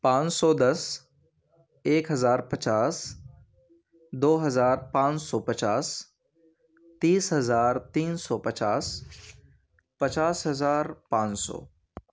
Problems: none marked